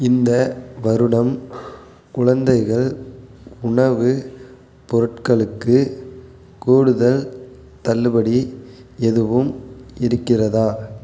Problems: constant background noise